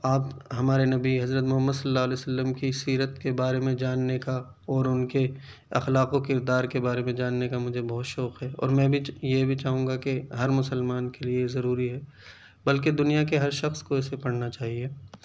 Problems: none marked